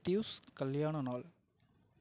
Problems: low volume